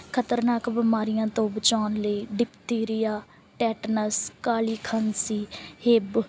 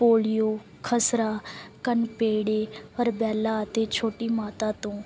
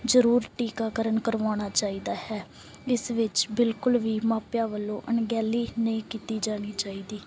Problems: none marked